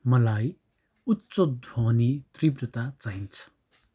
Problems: background sounds at intervals